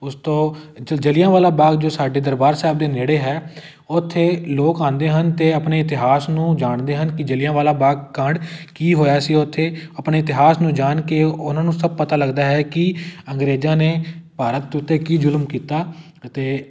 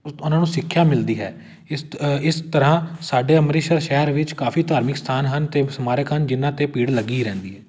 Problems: none marked